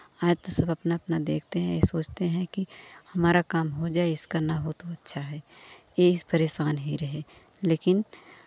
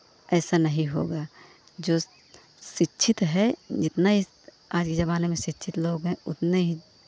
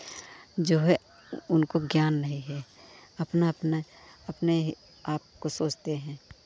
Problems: constant background noise